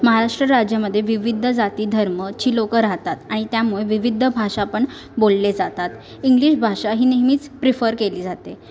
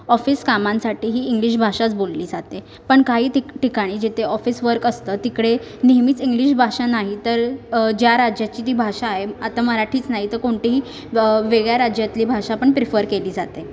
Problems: background sounds at intervals